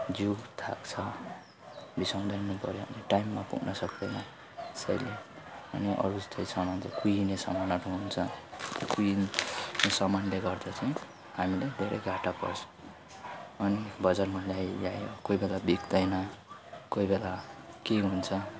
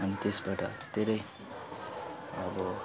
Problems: continuous background conversations, low volume